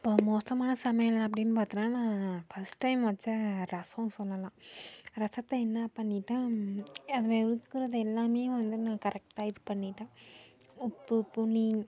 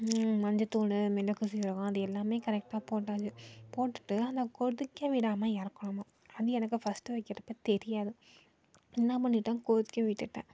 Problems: low volume